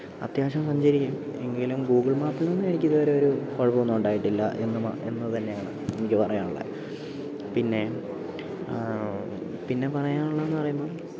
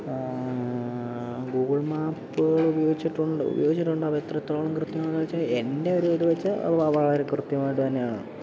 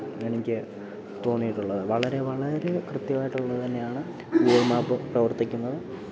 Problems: low volume